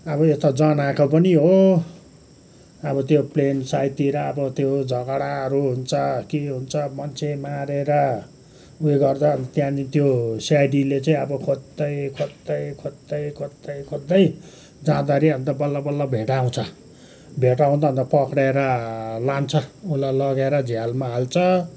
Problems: background sounds at intervals